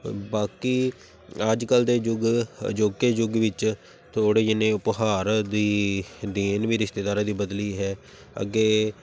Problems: none marked